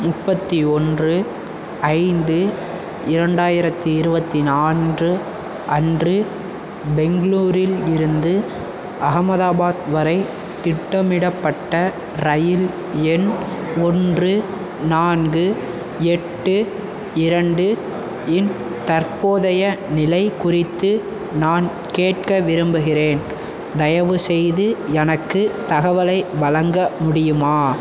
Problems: constant background noise